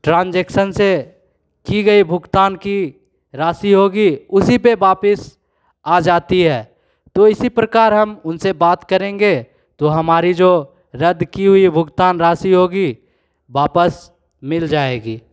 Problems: none marked